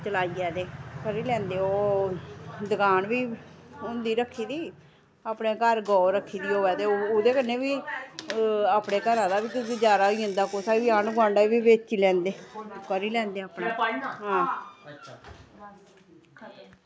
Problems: constant background noise